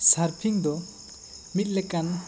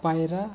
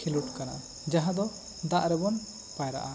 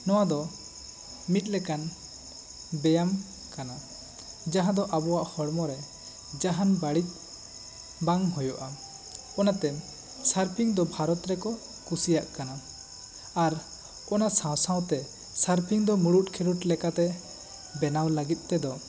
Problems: constant background noise